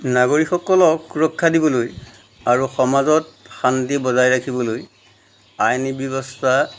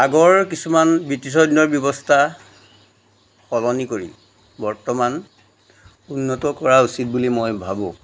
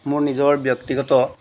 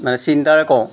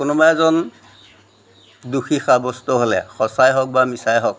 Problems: none marked